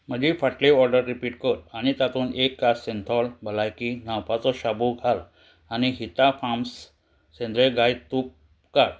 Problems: none marked